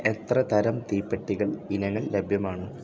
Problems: none marked